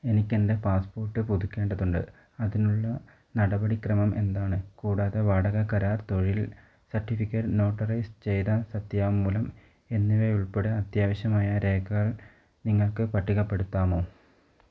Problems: none marked